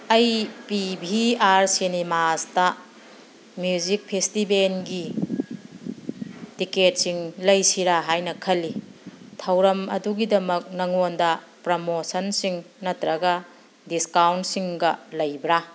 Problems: none marked